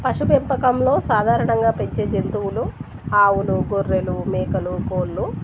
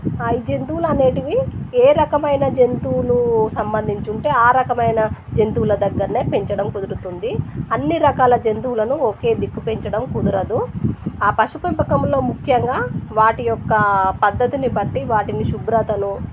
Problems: constant background noise